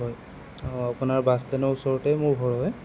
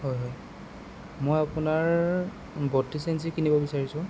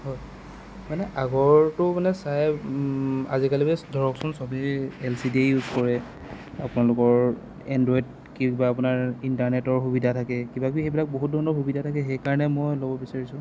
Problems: constant background noise